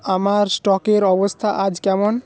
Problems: background sounds at intervals